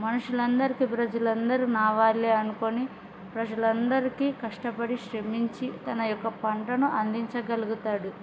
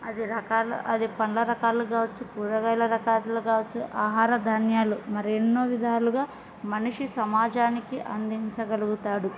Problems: background sounds at intervals